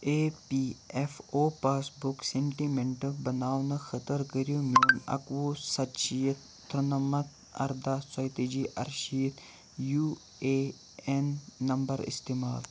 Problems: constant background noise